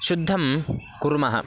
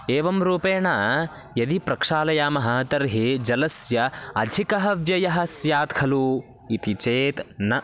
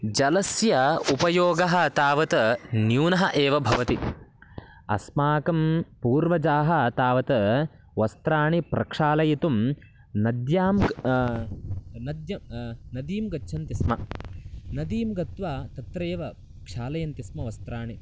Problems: background sounds at intervals